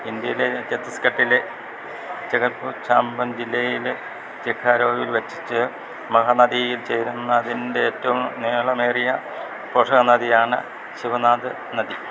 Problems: constant background noise, low volume